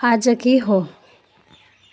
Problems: continuous background conversations